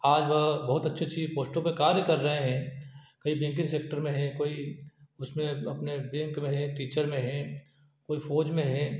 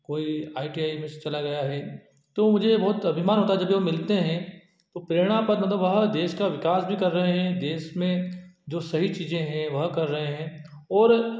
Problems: none marked